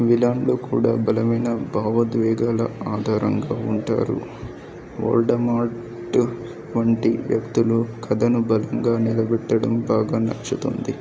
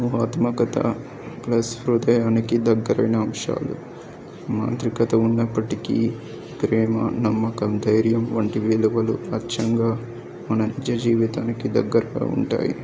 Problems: background sounds at intervals